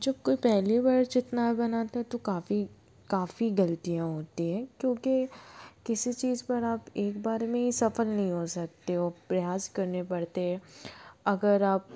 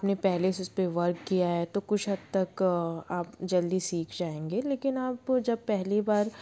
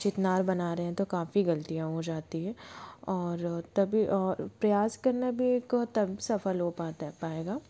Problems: none marked